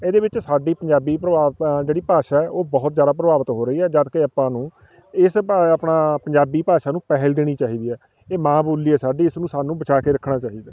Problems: constant background noise, background conversations at intervals